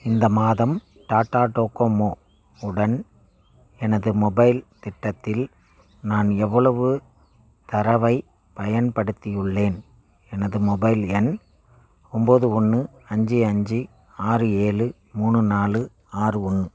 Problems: none marked